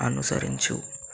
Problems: low volume